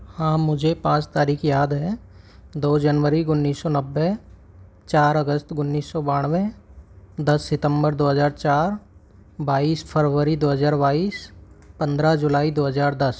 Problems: background sounds at intervals